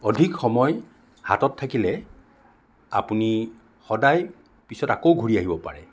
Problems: none marked